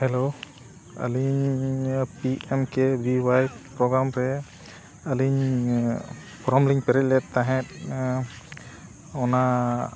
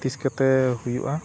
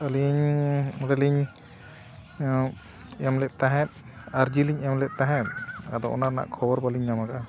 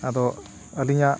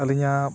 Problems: background sounds at intervals